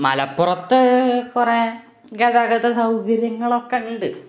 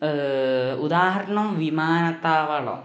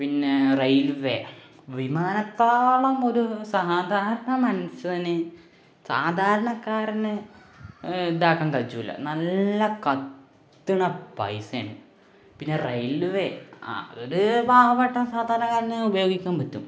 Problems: none marked